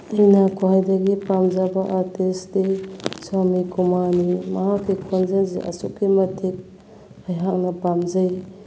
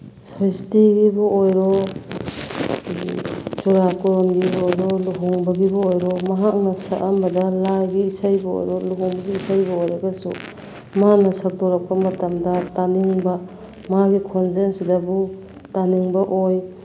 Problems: constant background noise